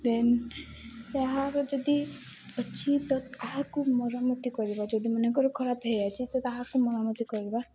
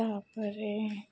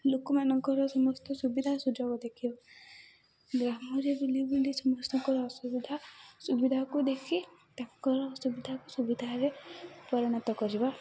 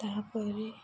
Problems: constant background noise